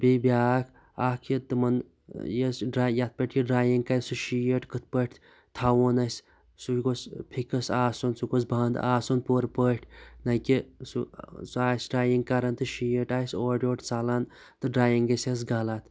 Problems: none marked